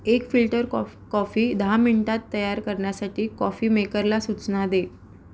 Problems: none marked